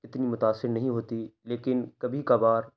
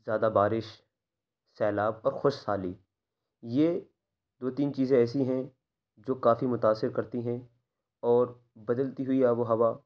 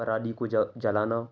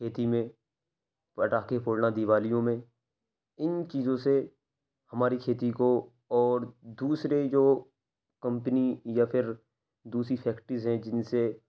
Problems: none marked